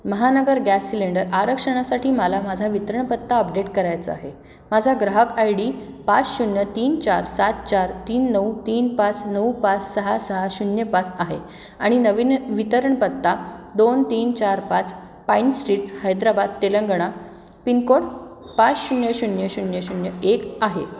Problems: constant background noise, background conversations at intervals, echo